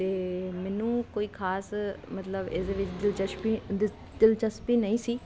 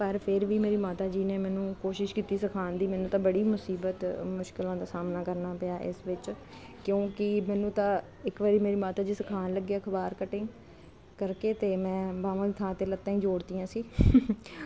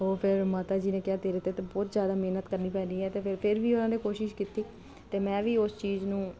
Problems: none marked